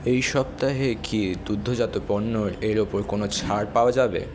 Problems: constant background noise